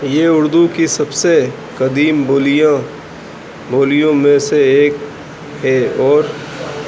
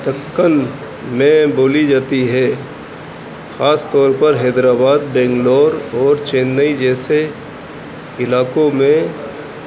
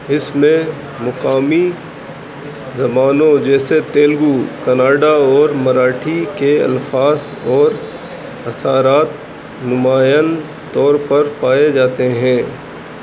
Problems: constant background noise, low volume